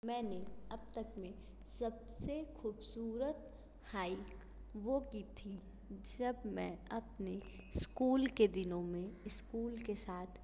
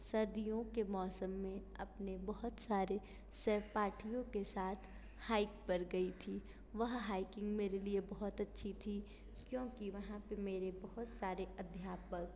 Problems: constant background noise